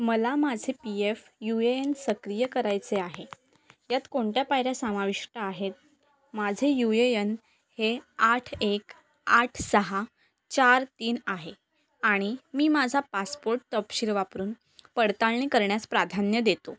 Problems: none marked